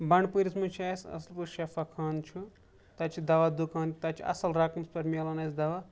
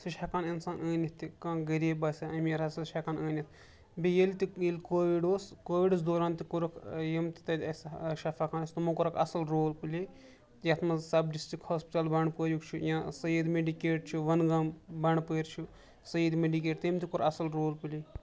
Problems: background sounds at intervals